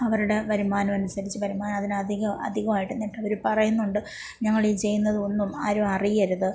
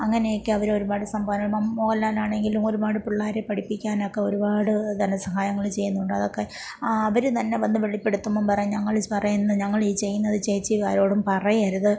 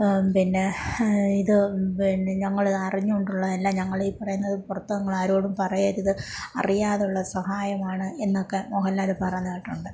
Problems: low volume